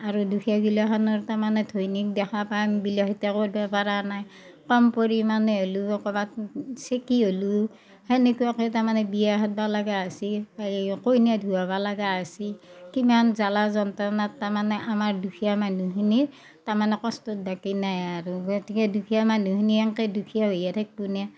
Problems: background sounds at intervals, background conversations at intervals